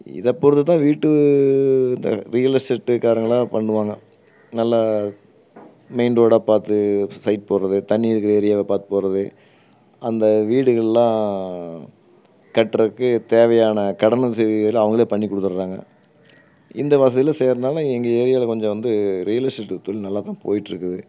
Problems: background conversations at intervals